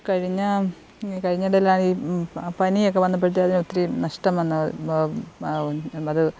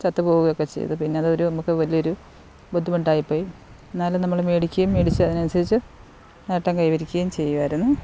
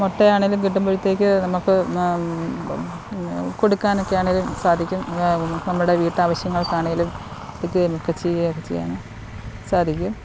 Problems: background sounds at intervals